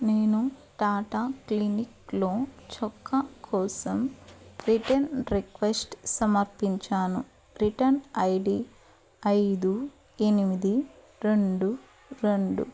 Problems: background sounds at intervals